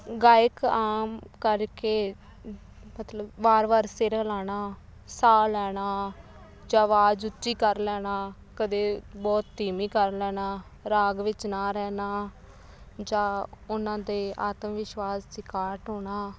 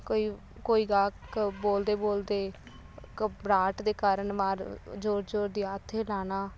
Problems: background sounds at intervals